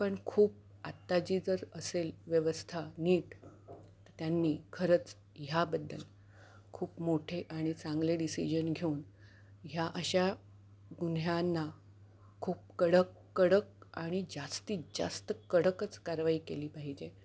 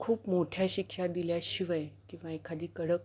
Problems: background sounds at intervals